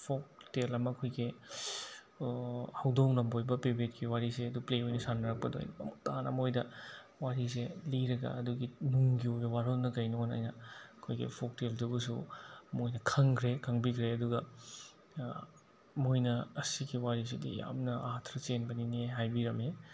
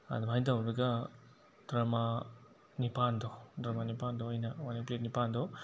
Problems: constant background noise